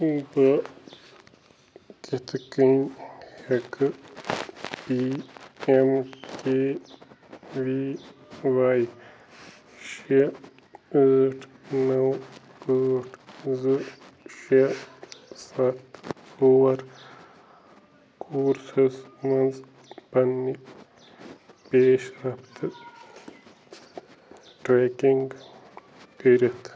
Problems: constant background noise